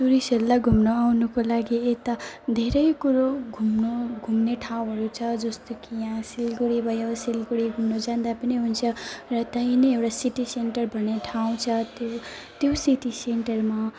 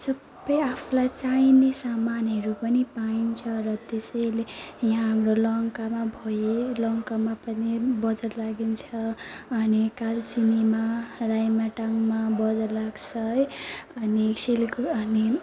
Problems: constant background noise, continuous background conversations